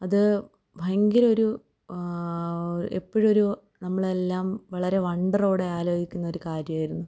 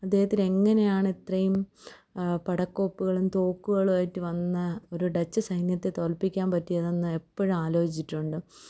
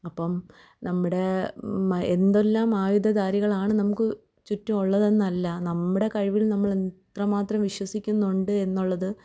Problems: low volume